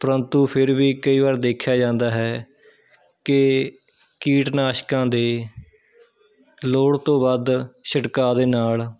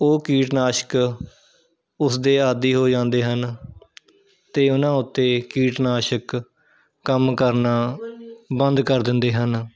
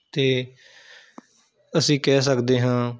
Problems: none marked